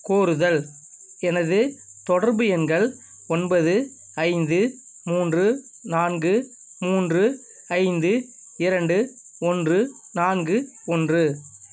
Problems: constant background noise